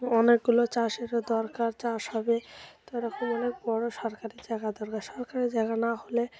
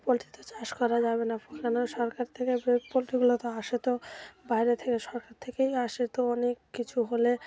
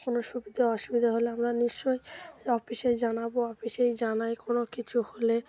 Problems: background sounds at intervals, continuous background conversations